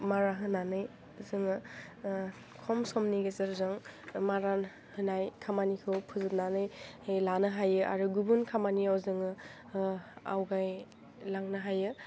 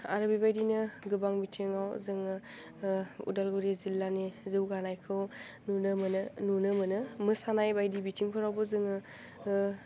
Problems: low volume